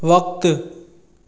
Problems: echo